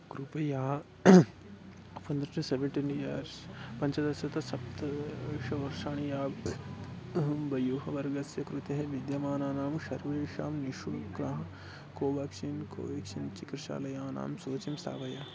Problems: constant background noise